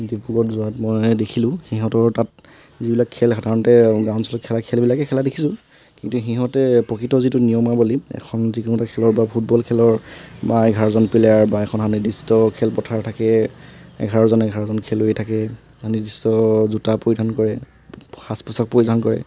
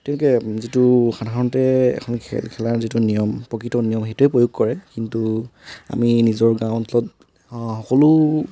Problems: constant background noise